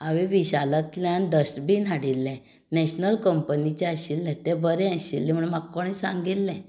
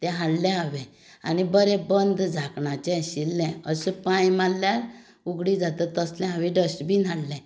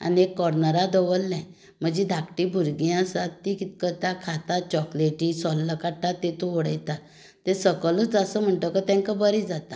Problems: none marked